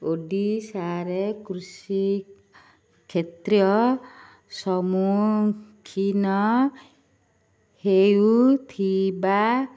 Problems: none marked